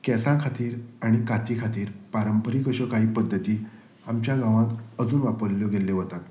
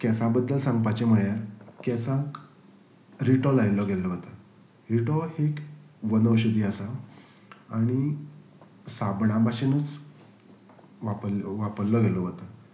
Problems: background sounds at intervals